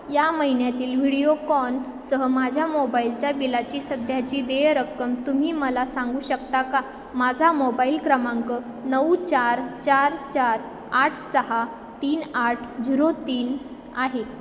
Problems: constant background noise, echo